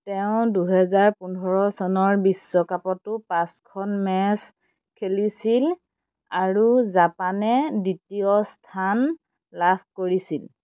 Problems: constant background noise